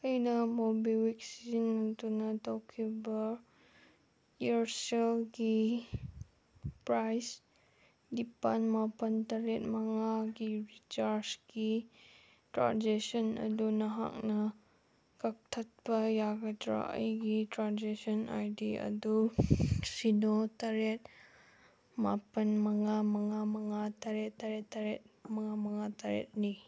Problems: background sounds at intervals